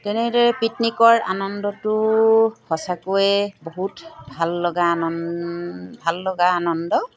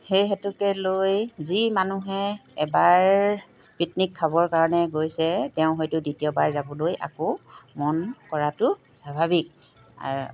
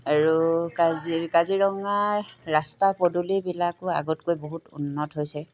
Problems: background sounds at intervals